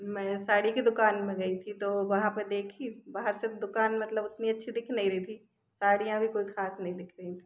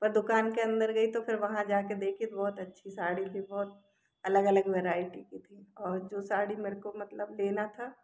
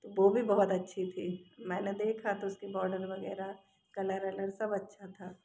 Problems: none marked